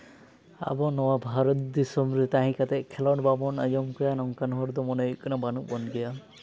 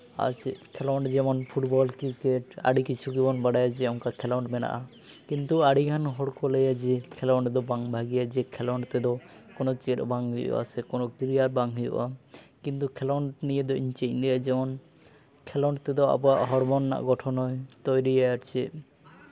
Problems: none marked